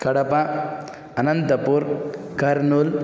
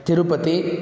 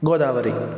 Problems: none marked